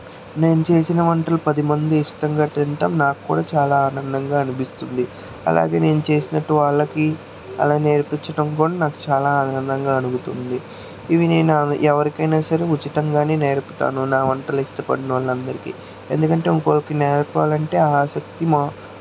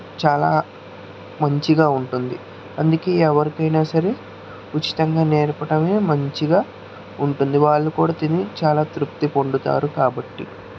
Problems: constant background noise